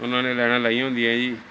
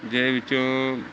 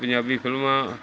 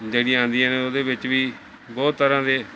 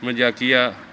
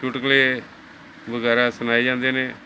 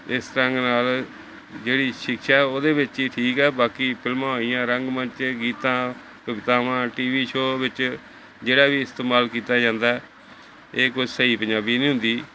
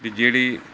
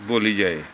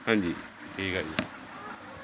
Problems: none marked